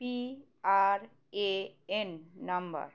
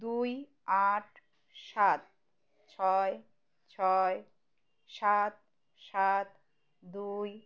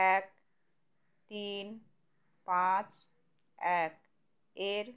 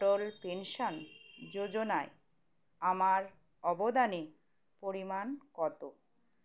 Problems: constant background noise